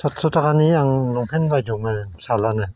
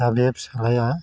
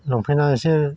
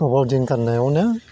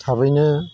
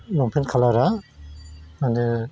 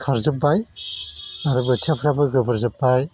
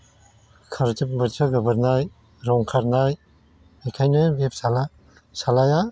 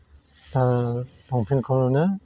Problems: constant background noise